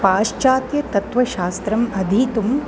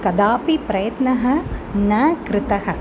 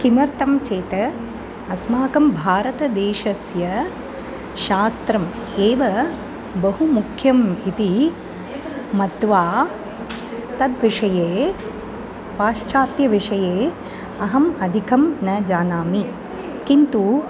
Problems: constant background noise